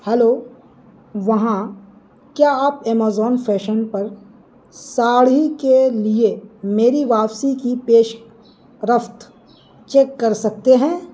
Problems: background sounds at intervals